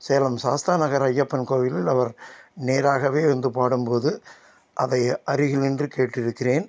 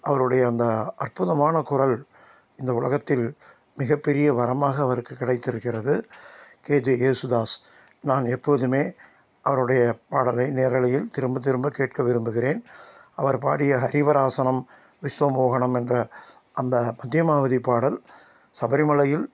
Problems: constant background noise